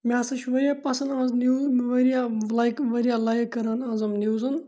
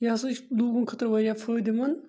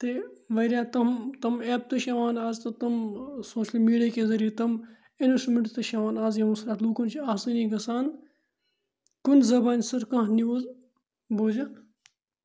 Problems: none marked